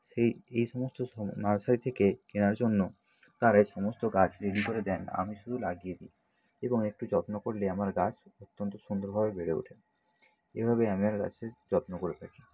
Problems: constant background noise